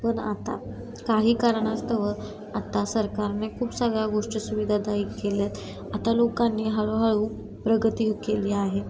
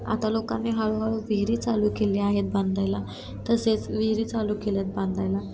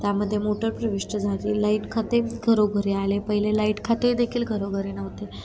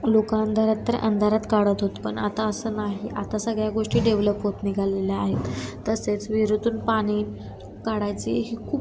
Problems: constant background noise, background conversations at intervals